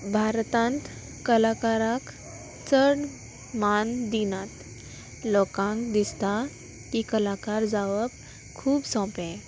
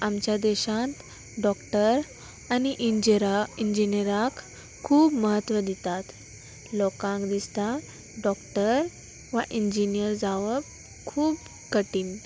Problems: constant background noise, background conversations at intervals